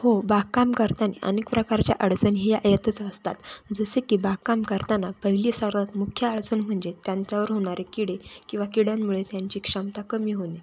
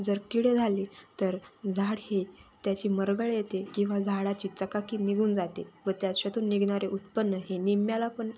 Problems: constant background noise, background conversations at intervals